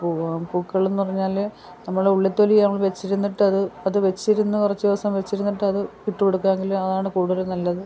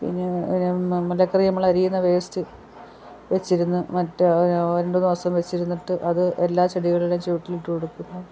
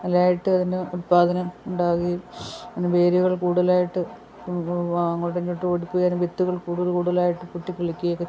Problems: background sounds at intervals